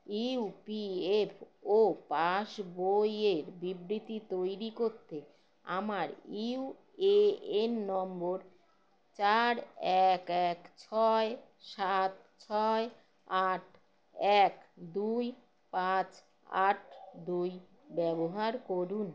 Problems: none marked